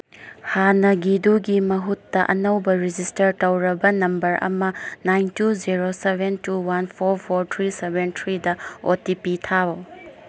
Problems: background sounds at intervals